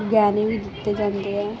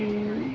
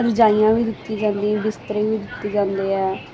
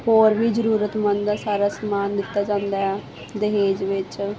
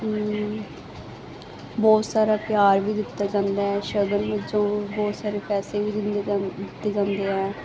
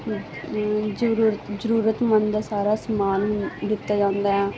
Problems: constant background noise